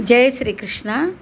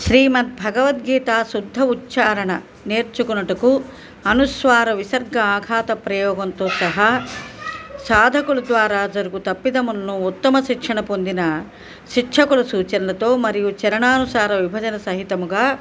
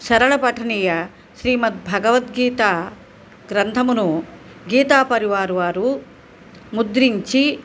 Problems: background conversations at intervals